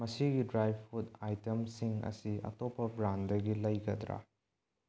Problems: low volume